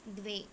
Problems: low volume